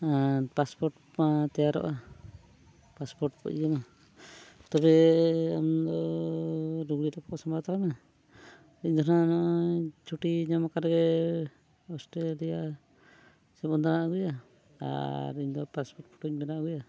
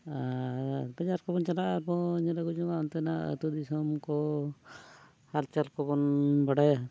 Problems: background sounds at intervals